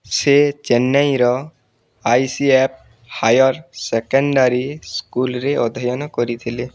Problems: none marked